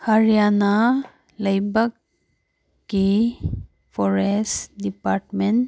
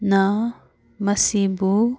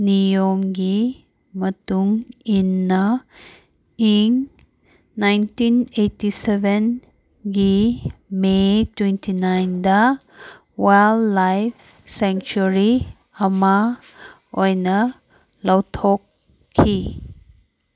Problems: none marked